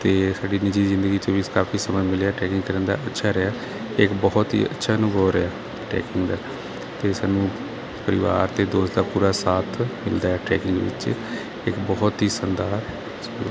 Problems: none marked